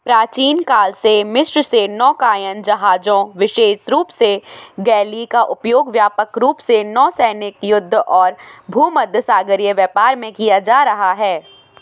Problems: constant background noise